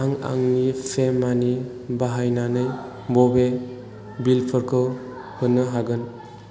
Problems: constant background noise